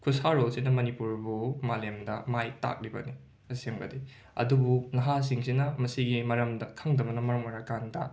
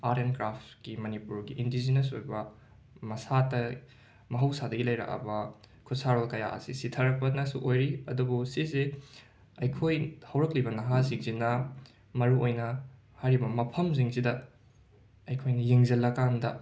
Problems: none marked